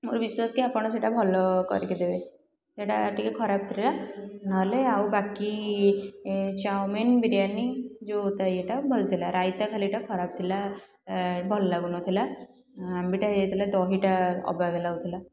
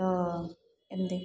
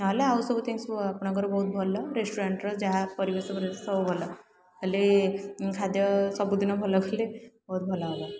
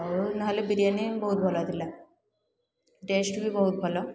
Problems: none marked